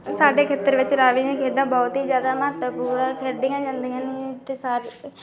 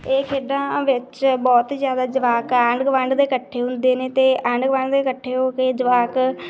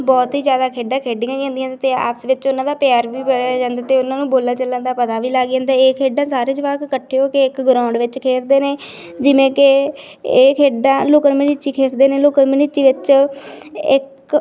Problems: continuous background conversations